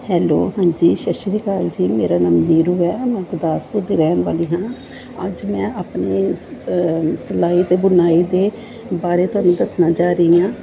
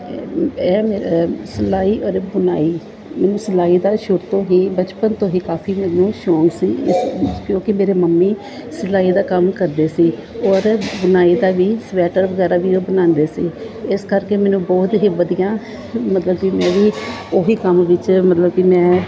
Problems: background sounds at intervals, background conversations at intervals